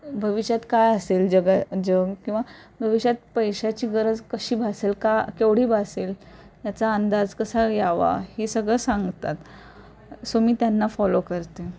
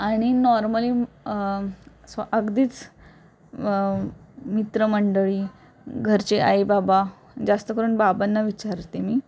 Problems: none marked